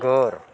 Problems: background sounds at intervals, background conversations at intervals